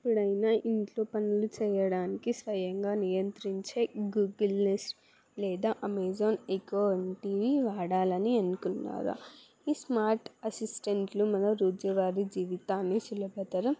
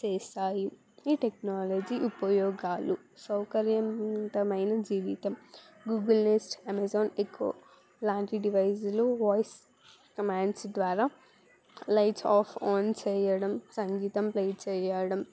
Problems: background sounds at intervals